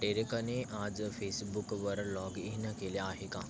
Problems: none marked